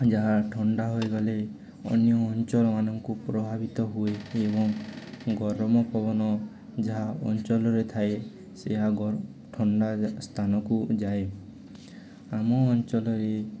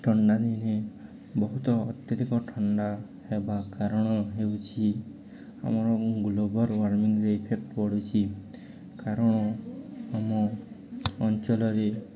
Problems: constant background noise, continuous background conversations